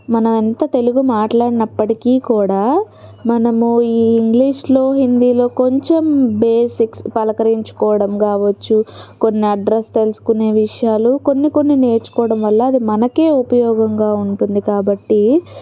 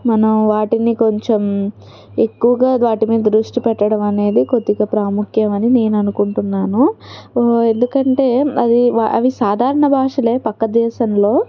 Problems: background conversations at intervals